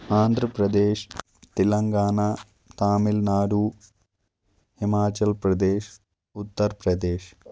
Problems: constant background noise